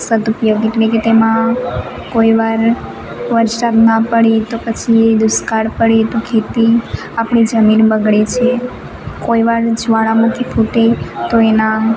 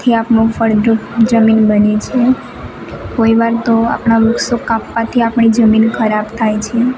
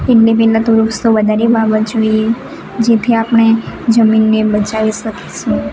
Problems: constant background noise